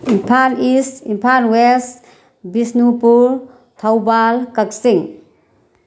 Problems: none marked